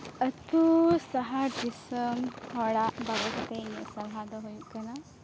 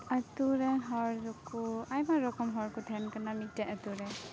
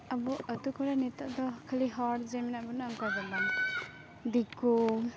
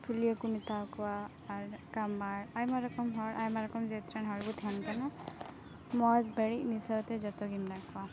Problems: constant background noise